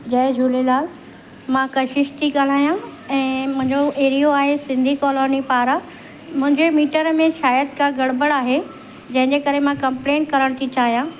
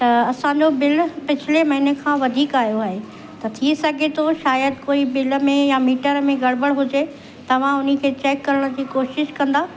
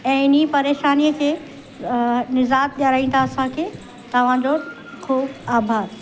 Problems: constant background noise